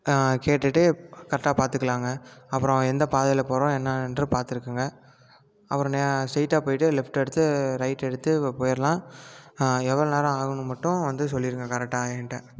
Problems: none marked